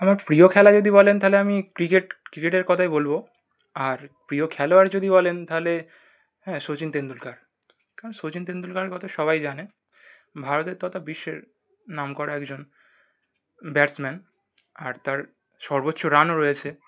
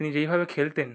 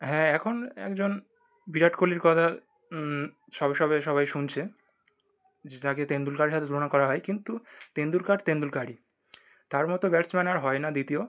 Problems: none marked